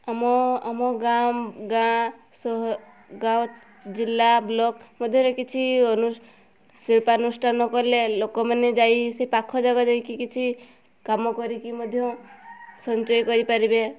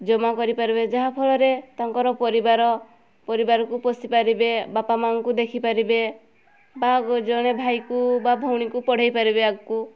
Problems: background sounds at intervals